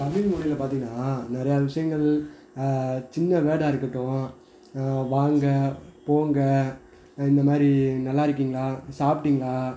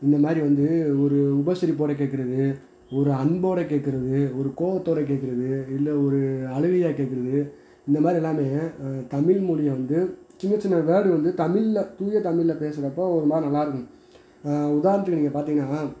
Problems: background conversations at intervals